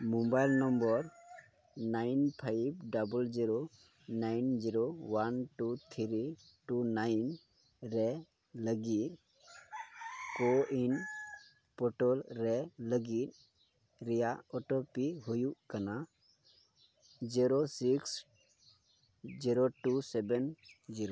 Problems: none marked